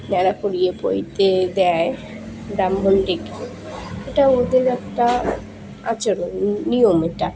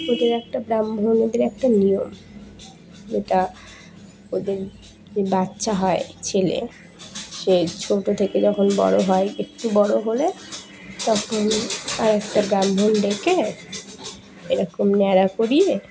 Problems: none marked